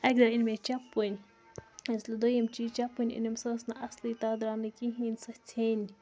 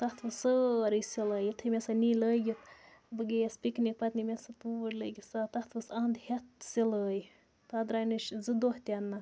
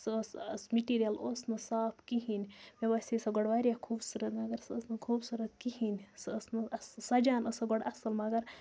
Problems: constant background noise, background conversations at intervals